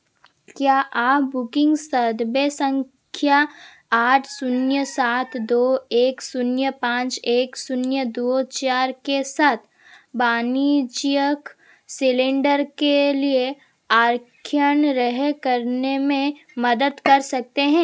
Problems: constant background noise